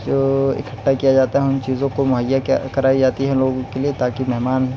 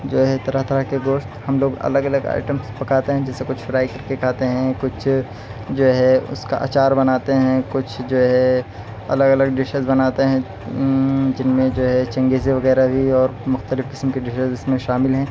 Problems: none marked